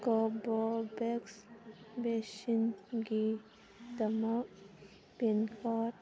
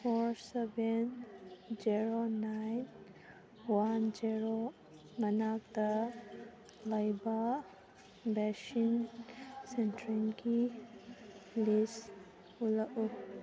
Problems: constant background noise